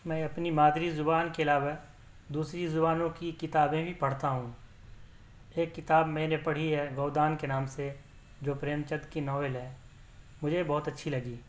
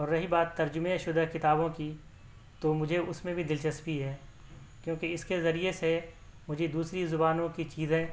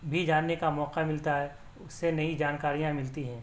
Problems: none marked